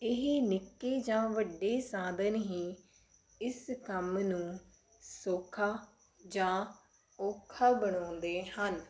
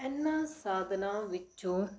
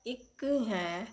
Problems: constant background noise